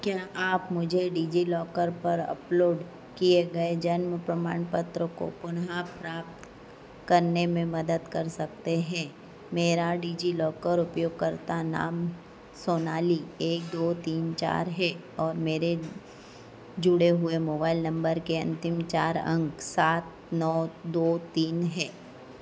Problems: constant background noise